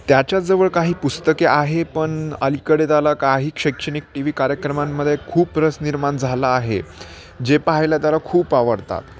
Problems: constant background noise, continuous background conversations